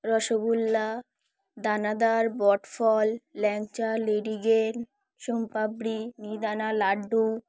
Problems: background sounds at intervals